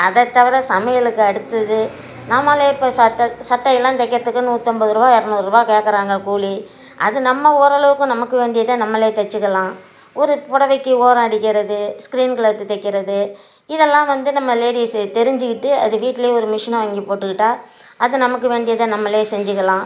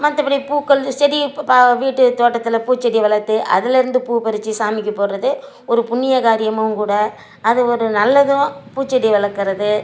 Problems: background sounds at intervals